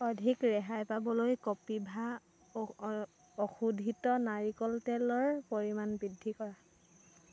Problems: constant background noise